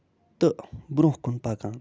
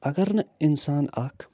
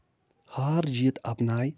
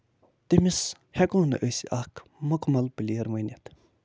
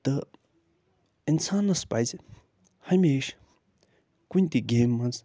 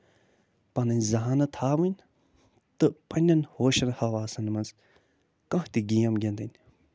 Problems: none marked